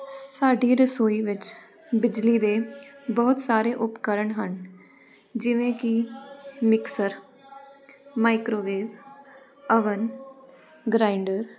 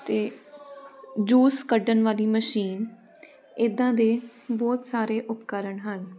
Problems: none marked